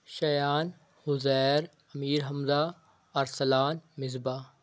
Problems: none marked